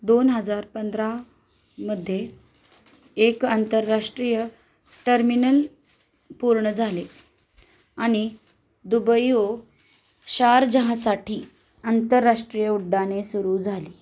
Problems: constant background noise